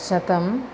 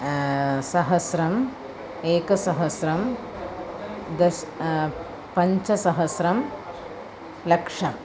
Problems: constant background noise, continuous background conversations